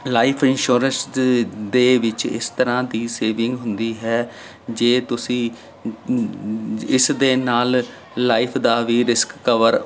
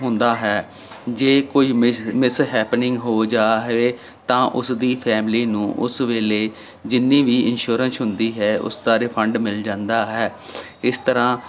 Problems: none marked